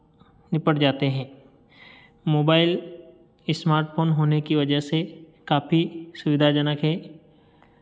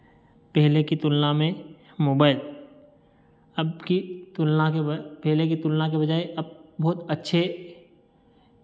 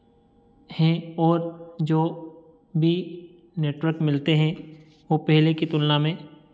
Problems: none marked